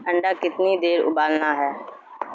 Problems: constant background noise